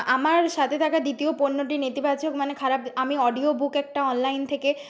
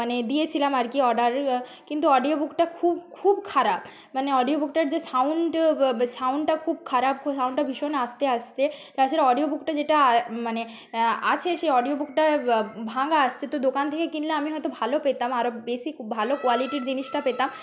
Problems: background conversations at intervals